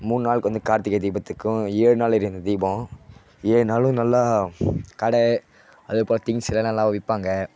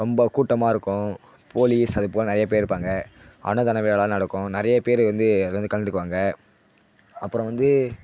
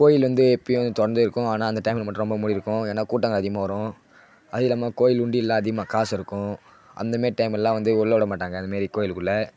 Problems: constant background noise